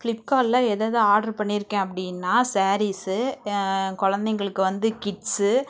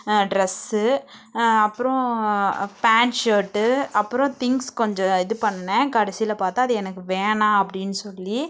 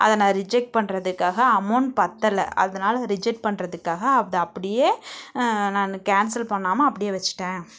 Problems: background sounds at intervals